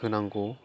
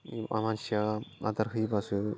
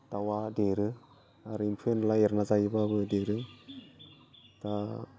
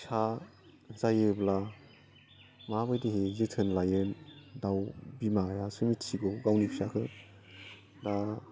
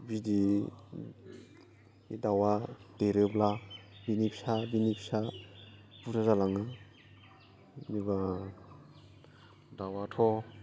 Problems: low volume